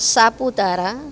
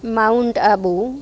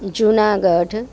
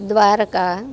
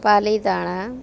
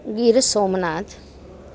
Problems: background sounds at intervals